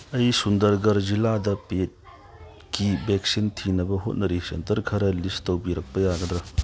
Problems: none marked